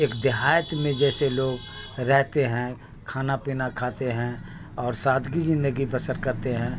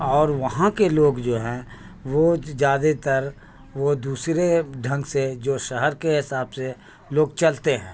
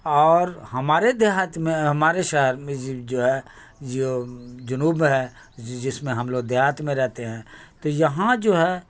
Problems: constant background noise